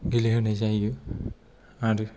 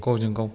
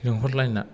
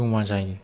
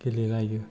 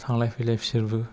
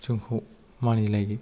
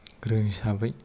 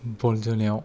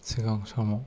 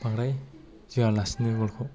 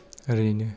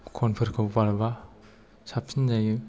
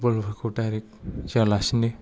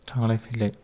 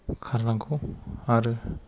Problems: low volume